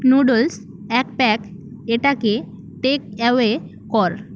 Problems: constant background noise